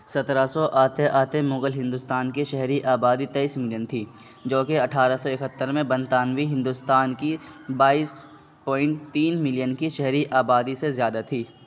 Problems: constant background noise